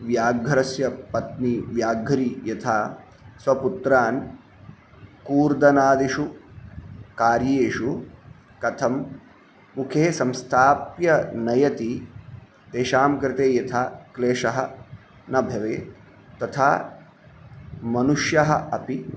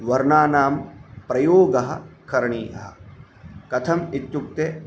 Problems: none marked